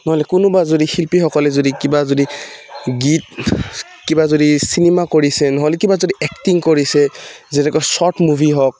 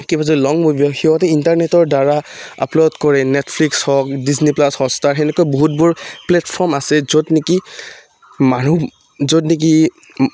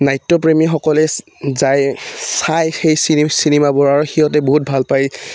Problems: background sounds at intervals